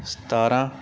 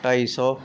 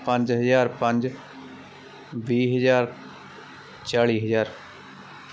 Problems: constant background noise